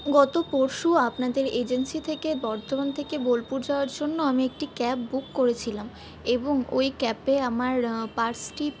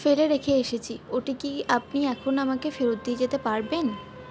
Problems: background sounds at intervals